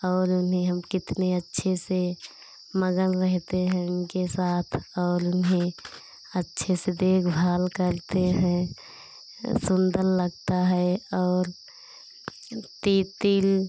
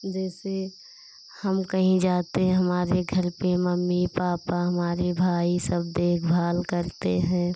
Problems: constant background noise